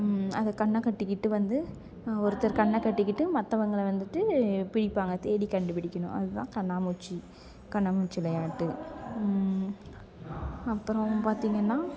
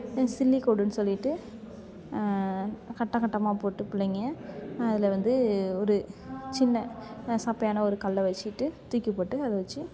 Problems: background sounds at intervals, background conversations at intervals